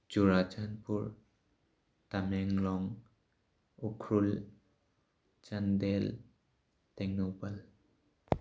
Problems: none marked